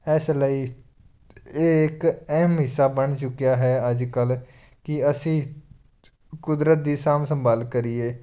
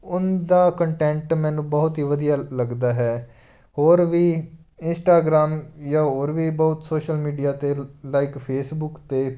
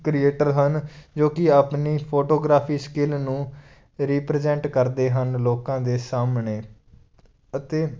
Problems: background sounds at intervals